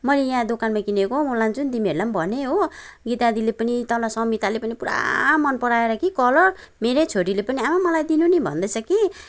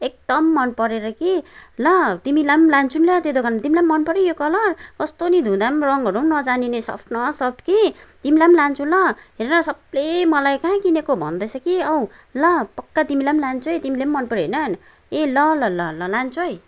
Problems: background sounds at intervals